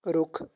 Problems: background conversations at intervals